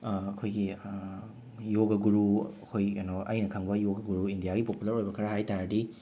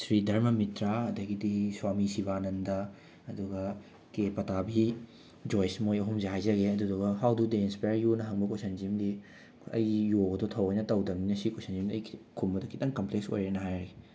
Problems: background sounds at intervals